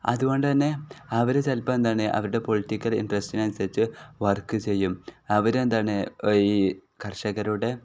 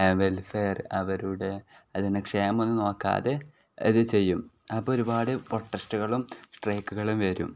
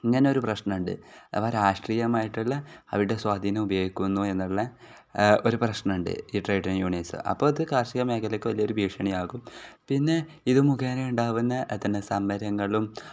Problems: none marked